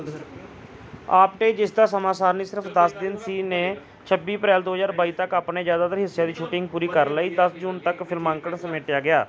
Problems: background conversations at intervals